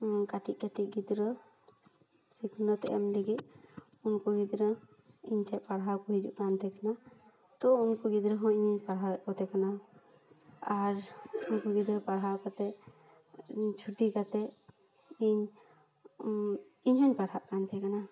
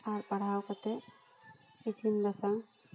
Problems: background sounds at intervals, continuous background conversations, echo